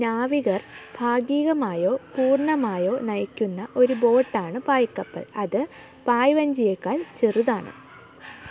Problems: background sounds at intervals